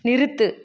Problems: constant background noise